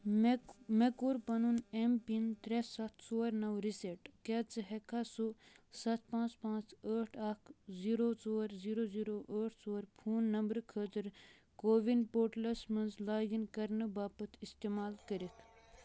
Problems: none marked